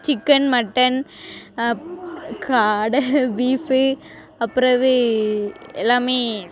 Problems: constant background noise